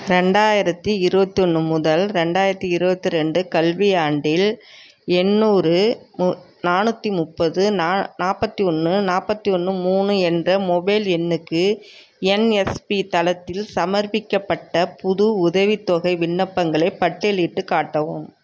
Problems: background sounds at intervals